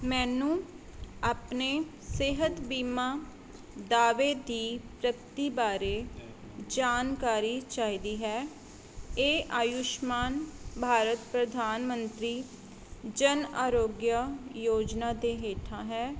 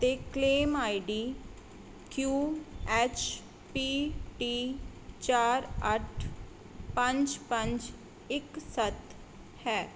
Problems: none marked